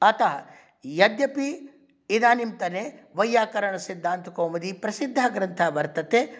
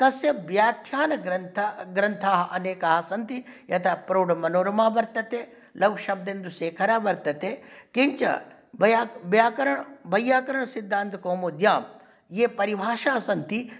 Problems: none marked